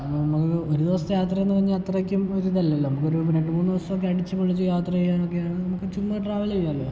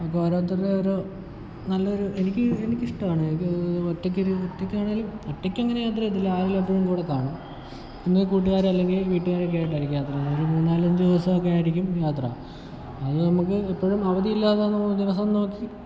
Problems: background sounds at intervals